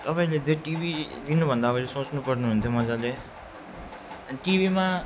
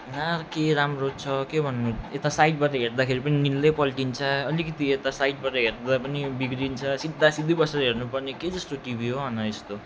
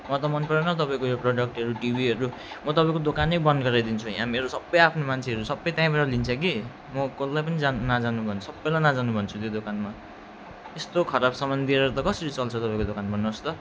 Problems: none marked